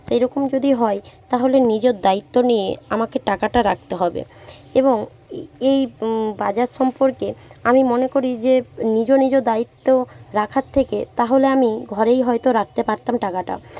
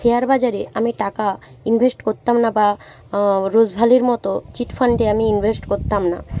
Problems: none marked